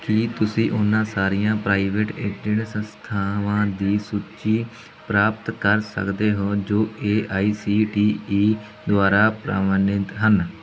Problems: background sounds at intervals